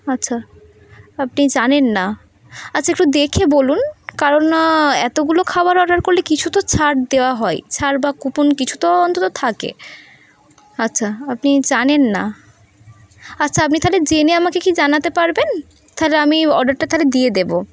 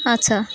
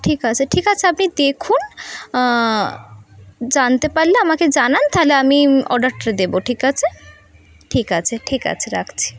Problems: constant background noise